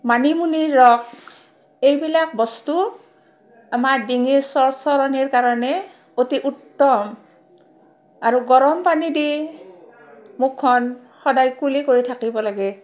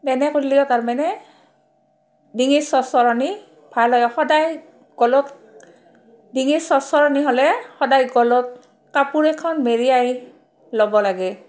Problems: background sounds at intervals, background conversations at intervals